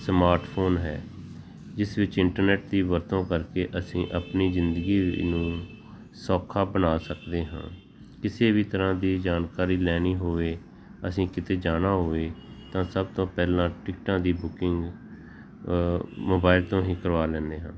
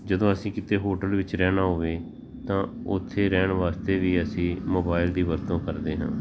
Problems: background sounds at intervals, background conversations at intervals